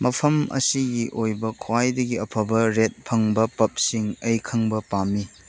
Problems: background sounds at intervals